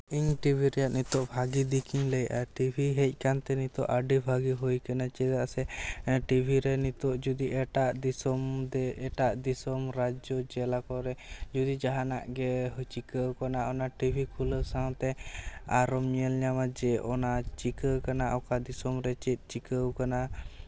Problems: background sounds at intervals